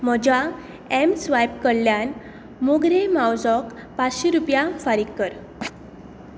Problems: background sounds at intervals